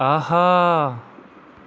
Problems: none marked